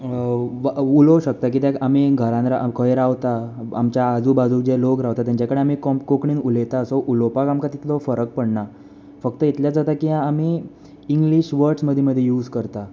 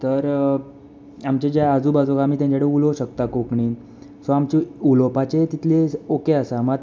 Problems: none marked